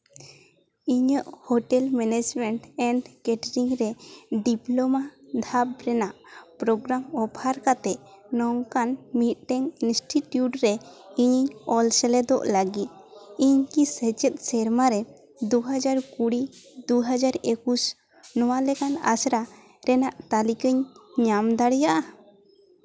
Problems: constant background noise, continuous background conversations